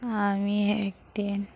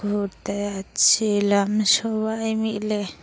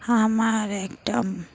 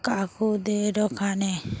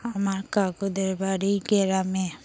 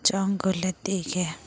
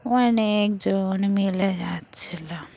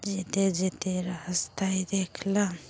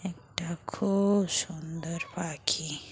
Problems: constant background noise, background conversations at intervals